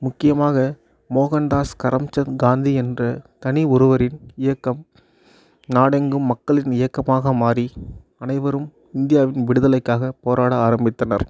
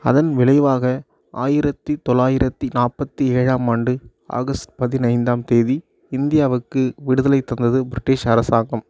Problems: none marked